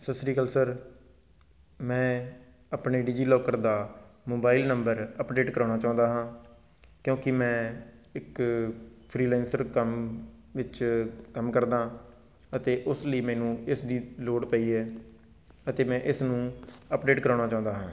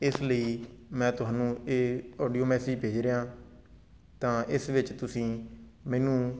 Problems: none marked